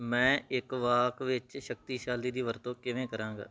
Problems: background sounds at intervals